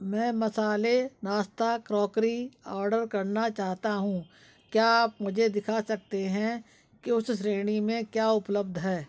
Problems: background sounds at intervals, background conversations at intervals